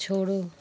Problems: constant background noise